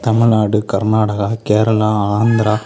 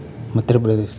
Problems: constant background noise, background conversations at intervals